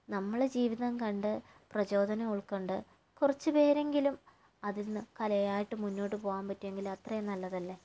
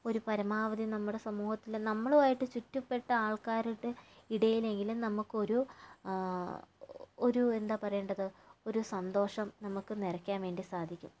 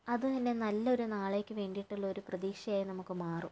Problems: low volume